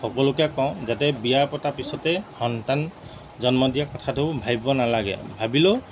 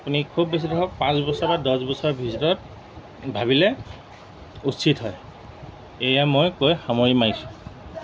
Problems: background sounds at intervals